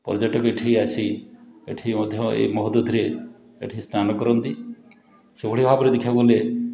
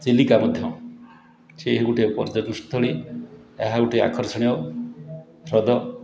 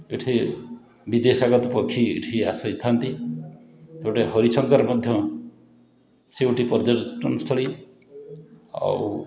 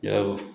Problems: continuous background conversations